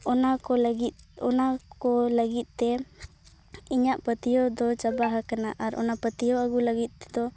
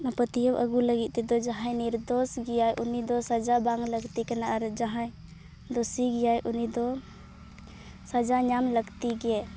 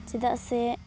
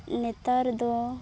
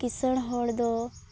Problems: background sounds at intervals